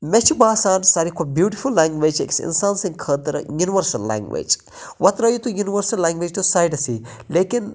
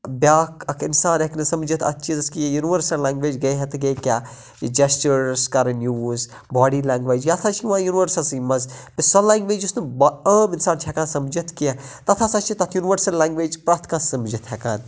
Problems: constant background noise